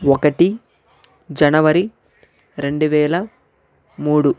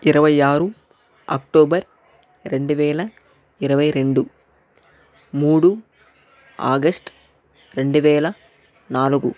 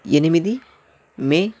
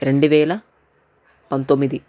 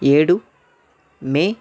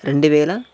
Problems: none marked